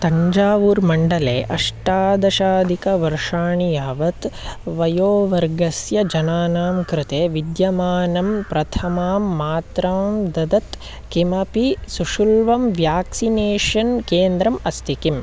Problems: constant background noise